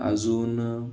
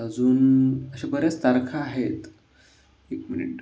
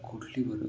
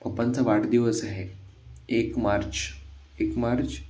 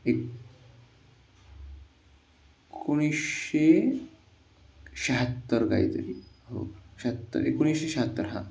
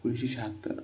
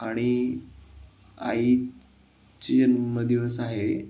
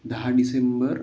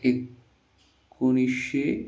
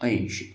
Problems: constant background noise